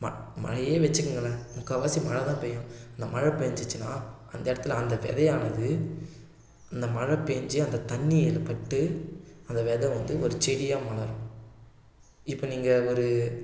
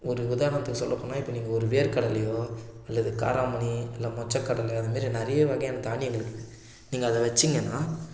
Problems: none marked